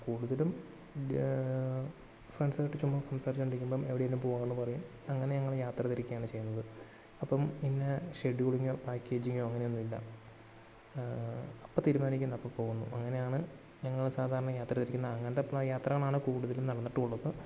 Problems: low volume